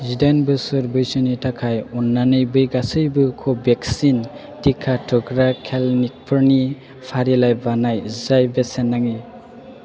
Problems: constant background noise